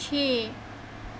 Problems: constant background noise